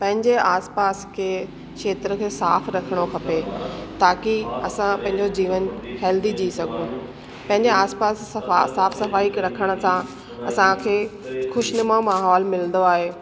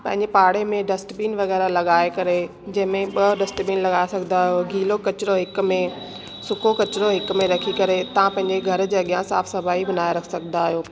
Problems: constant background noise, echo